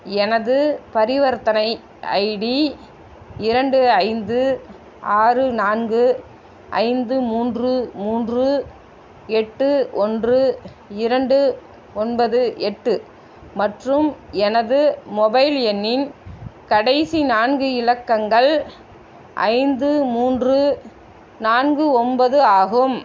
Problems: constant background noise